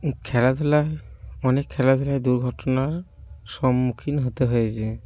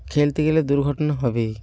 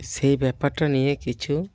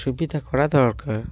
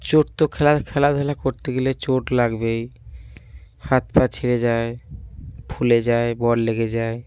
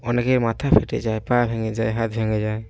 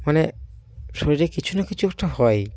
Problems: constant background noise